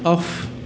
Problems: background sounds at intervals